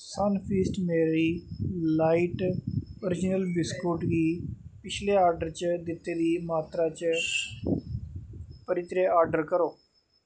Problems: background sounds at intervals